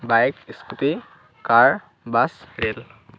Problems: constant background noise